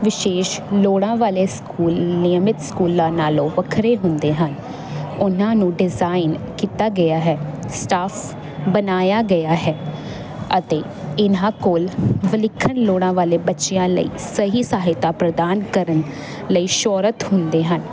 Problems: constant background noise